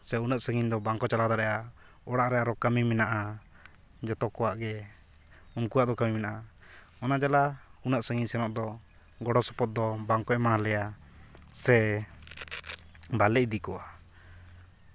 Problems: constant background noise